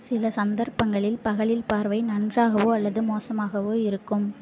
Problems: none marked